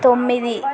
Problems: constant background noise, continuous background conversations